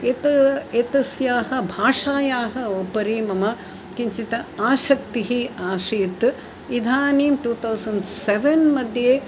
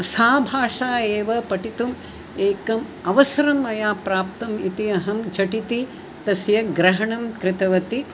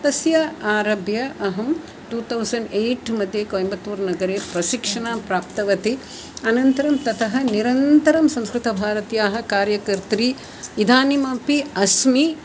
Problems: none marked